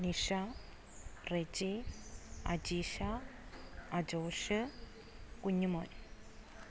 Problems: constant background noise, low volume